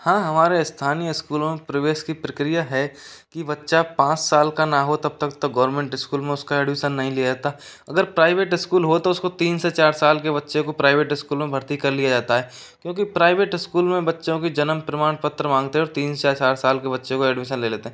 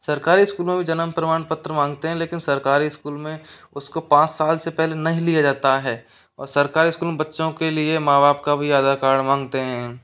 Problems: background sounds at intervals